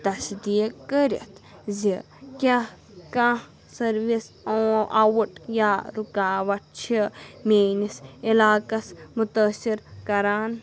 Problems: continuous background conversations